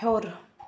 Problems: none marked